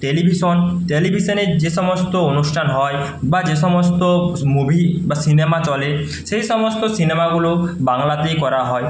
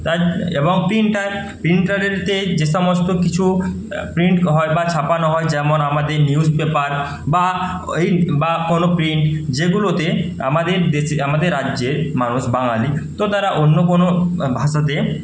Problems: constant background noise